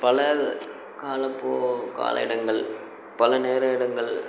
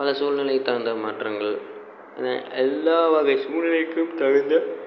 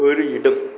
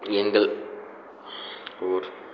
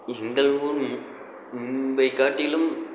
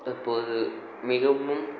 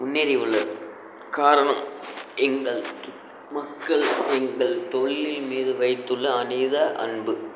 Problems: constant background noise